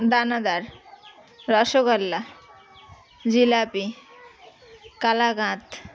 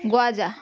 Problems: none marked